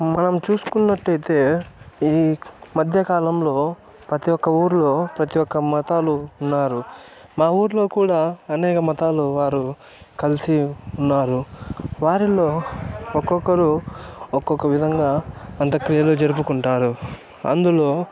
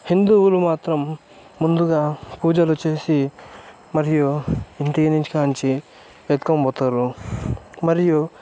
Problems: background sounds at intervals, continuous background conversations